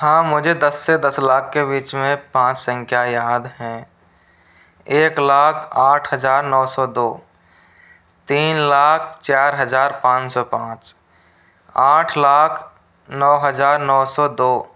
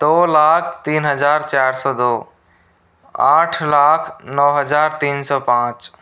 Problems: constant background noise